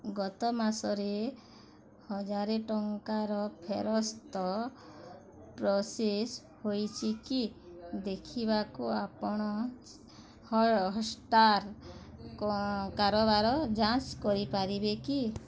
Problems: constant background noise